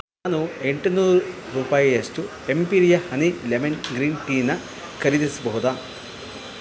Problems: constant background noise